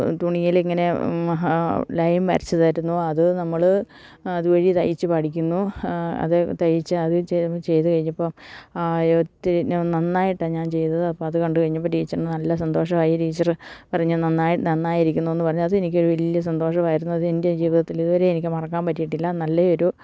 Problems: none marked